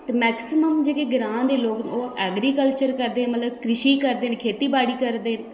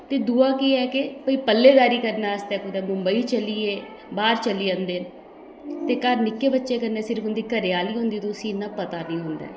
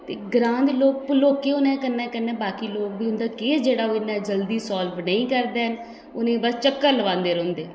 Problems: constant background noise, echo